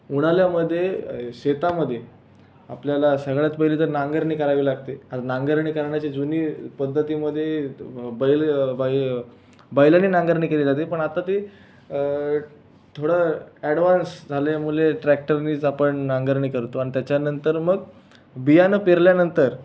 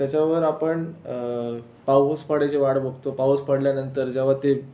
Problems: none marked